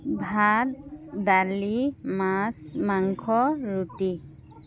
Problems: constant background noise